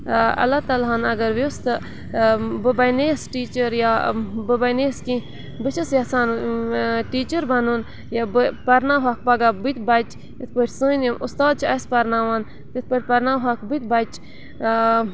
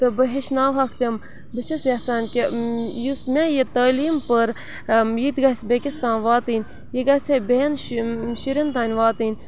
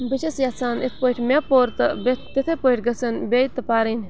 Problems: constant background noise